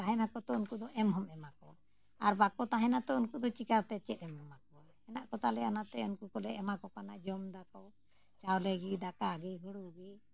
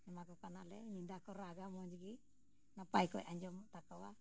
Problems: background sounds at intervals